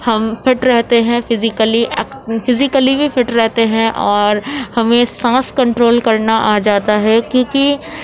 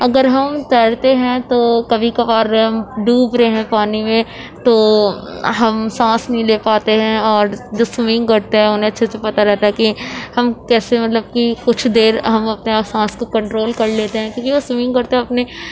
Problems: constant background noise